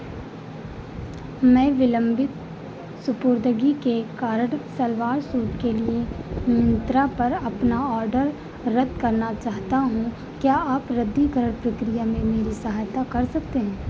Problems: constant background noise